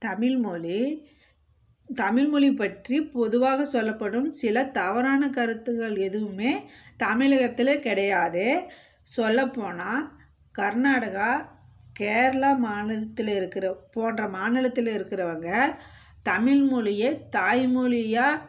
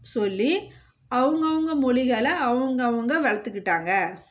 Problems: background sounds at intervals